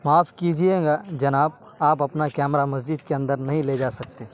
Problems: constant background noise